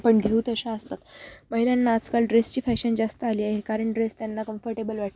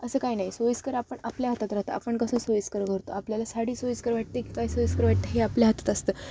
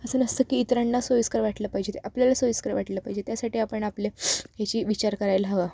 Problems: constant background noise, continuous background conversations